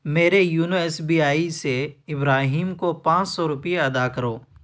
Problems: none marked